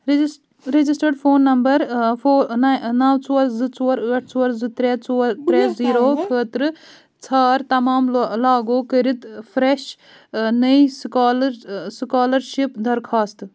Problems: background conversations at intervals